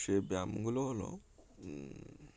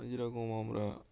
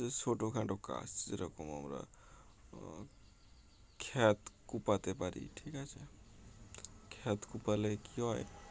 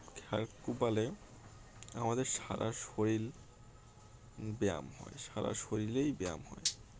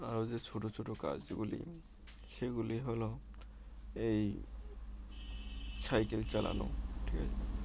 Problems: none marked